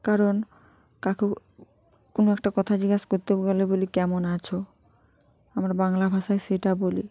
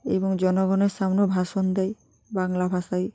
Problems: continuous background conversations